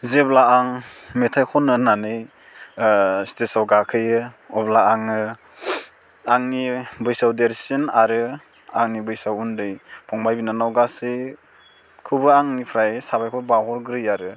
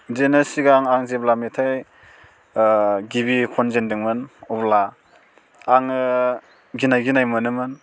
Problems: none marked